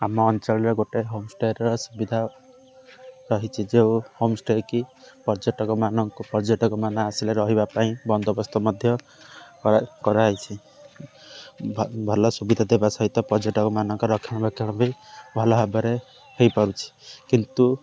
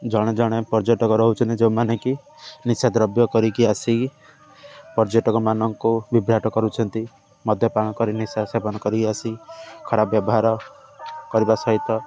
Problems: constant background noise